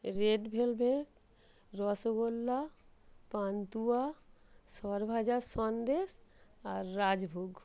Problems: background sounds at intervals